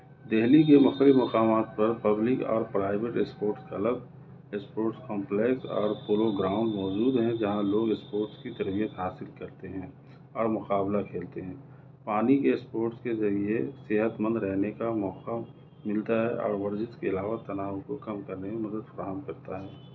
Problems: none marked